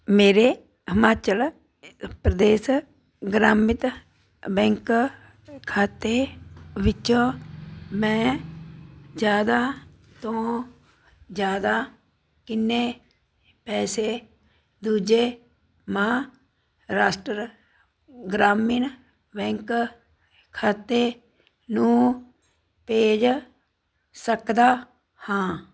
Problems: none marked